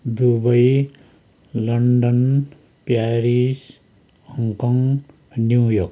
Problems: none marked